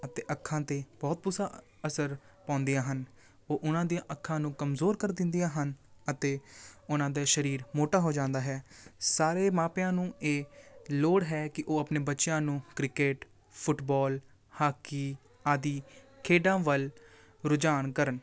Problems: background sounds at intervals